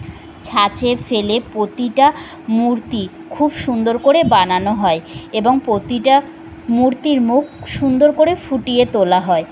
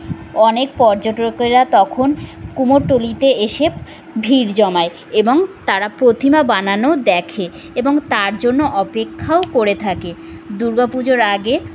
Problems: constant background noise